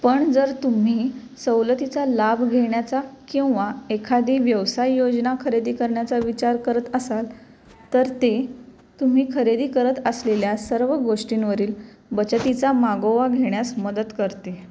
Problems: none marked